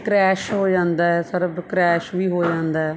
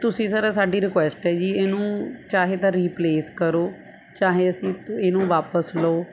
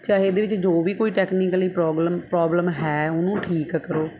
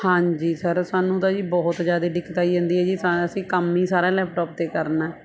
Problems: constant background noise